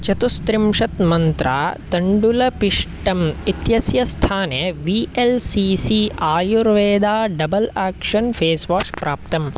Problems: constant background noise